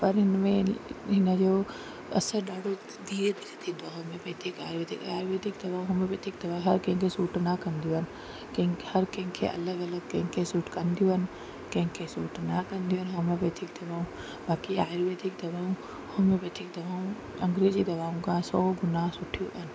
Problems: constant background noise, low volume